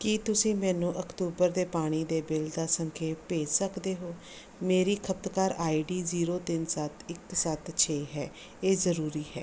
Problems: background sounds at intervals